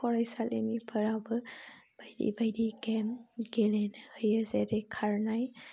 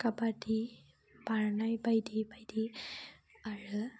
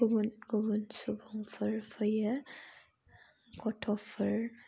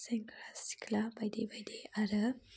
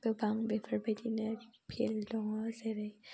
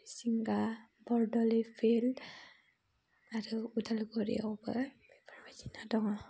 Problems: constant background noise